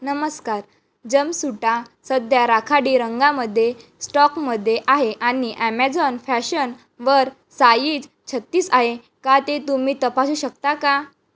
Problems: background sounds at intervals, background conversations at intervals